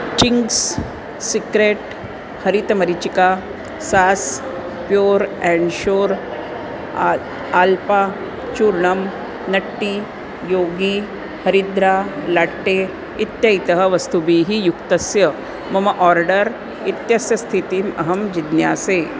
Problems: none marked